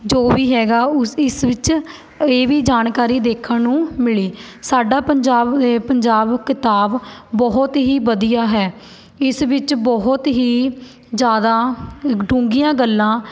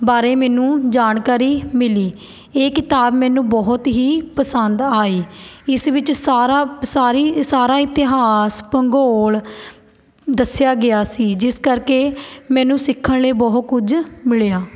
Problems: none marked